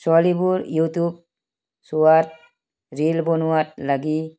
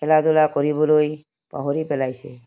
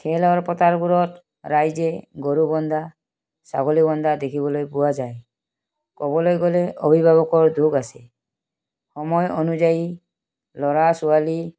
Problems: background sounds at intervals